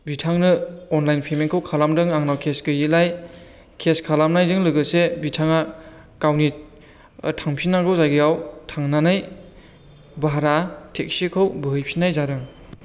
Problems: low volume